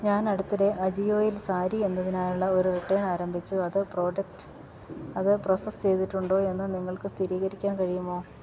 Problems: background sounds at intervals